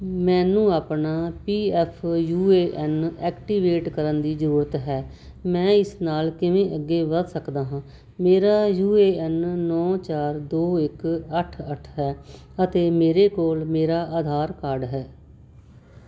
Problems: background sounds at intervals